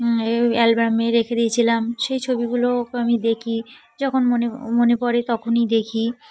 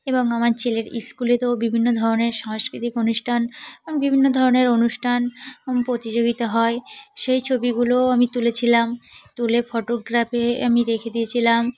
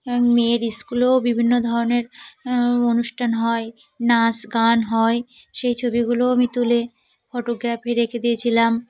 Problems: constant background noise, continuous background conversations